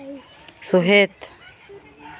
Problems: background conversations at intervals